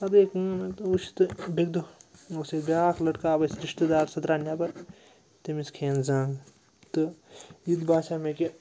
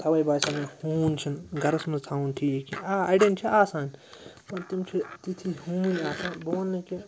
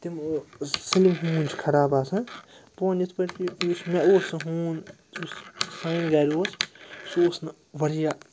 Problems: background sounds at intervals, background conversations at intervals